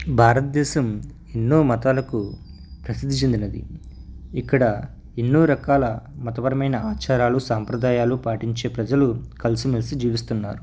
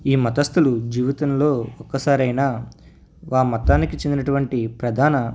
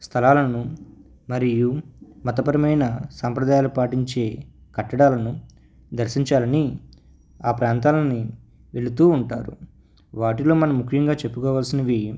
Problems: none marked